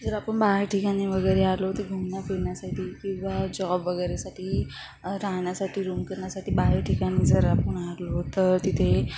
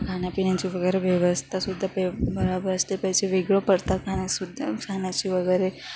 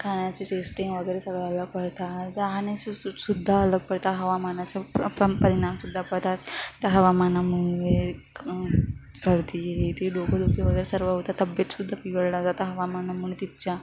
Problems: none marked